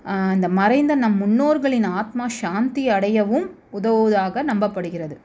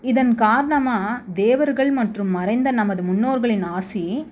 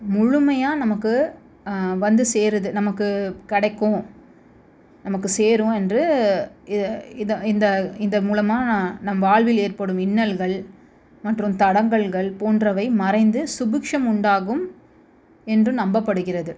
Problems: none marked